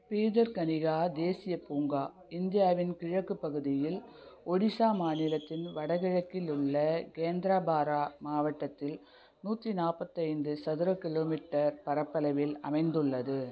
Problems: constant background noise